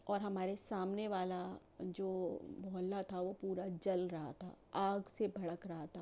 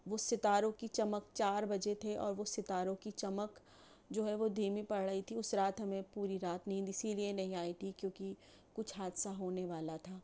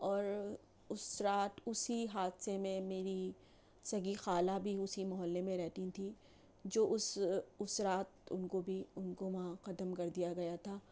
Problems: none marked